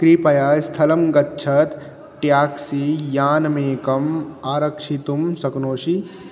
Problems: constant background noise